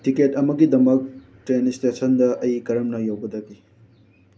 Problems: background sounds at intervals